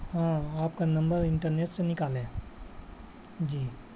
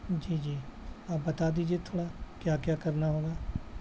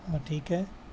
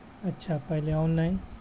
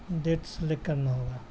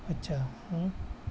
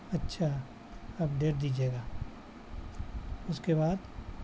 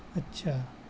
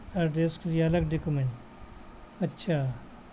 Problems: constant background noise